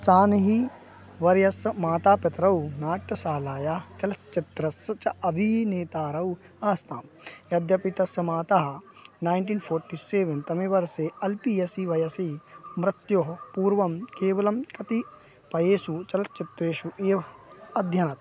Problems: constant background noise